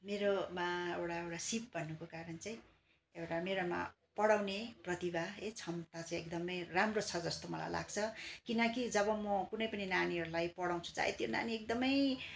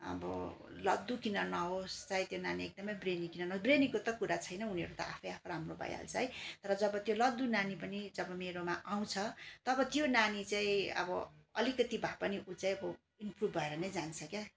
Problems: constant background noise